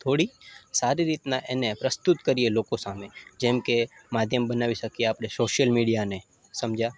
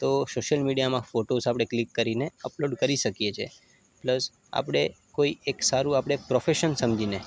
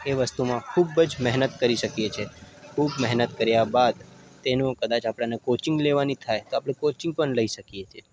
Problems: constant background noise